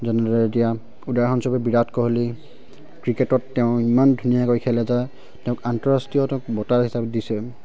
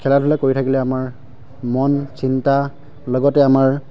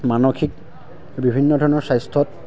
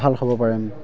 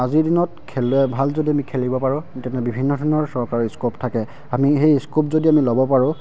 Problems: constant background noise